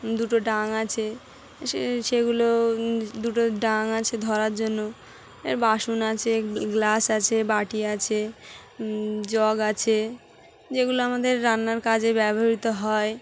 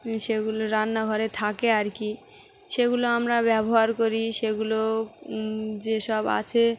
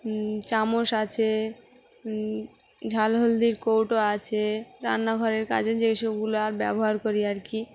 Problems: background sounds at intervals, background conversations at intervals